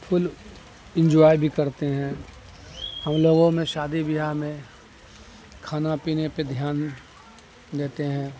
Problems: constant background noise